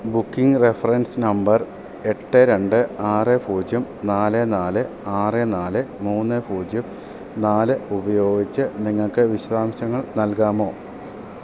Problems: none marked